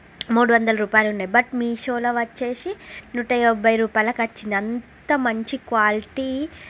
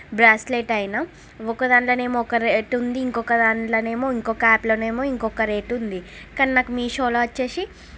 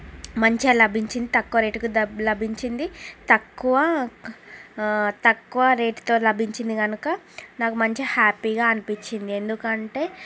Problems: constant background noise